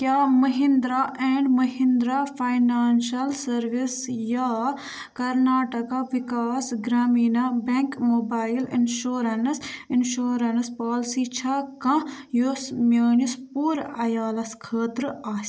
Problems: background sounds at intervals